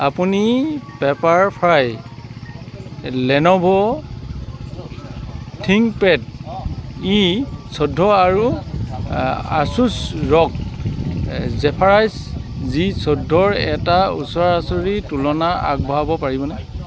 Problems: none marked